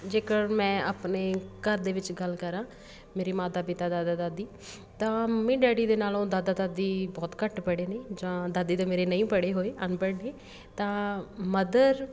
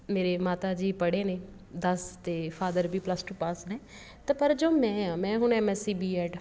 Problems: none marked